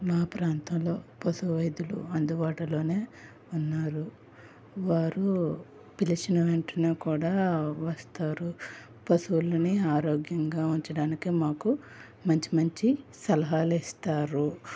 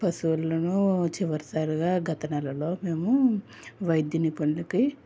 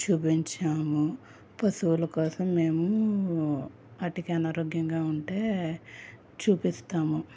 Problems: none marked